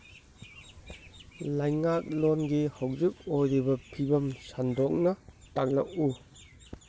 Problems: none marked